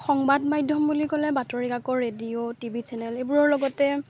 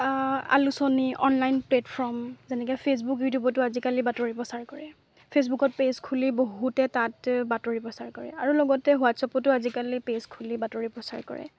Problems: constant background noise